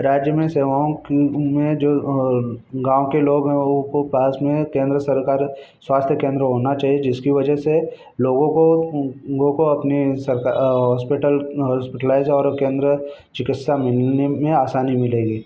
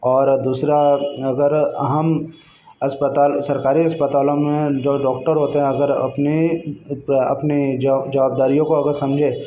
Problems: constant background noise, background conversations at intervals